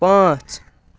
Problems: background sounds at intervals